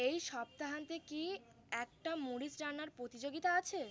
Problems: constant background noise